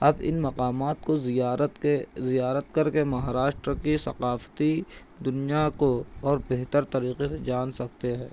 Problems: constant background noise